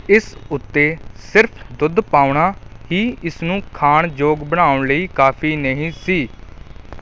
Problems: background sounds at intervals